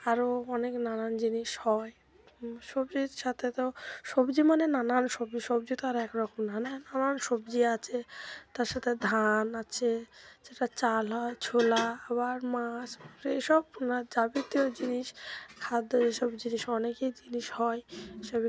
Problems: none marked